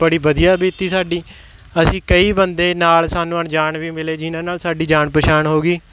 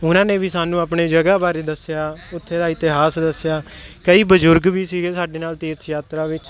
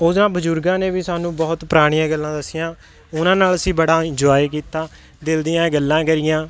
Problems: background sounds at intervals